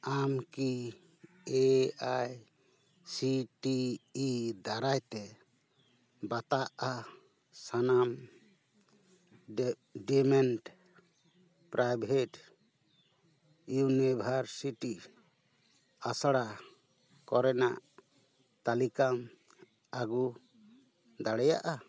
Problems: background conversations at intervals